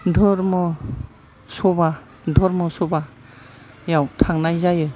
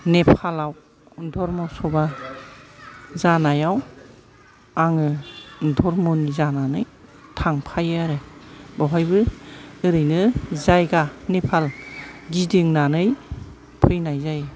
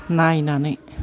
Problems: low volume